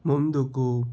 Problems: constant background noise